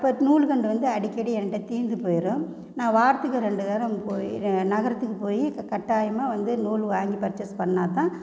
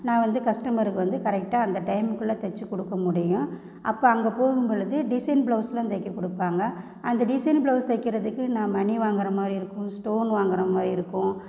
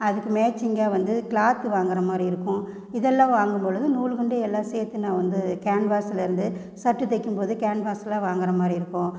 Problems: constant background noise